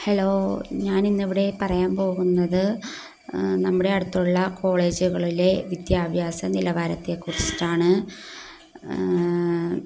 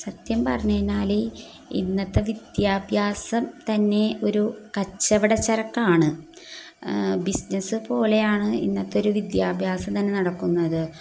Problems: none marked